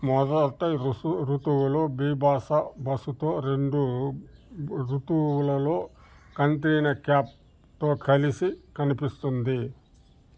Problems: constant background noise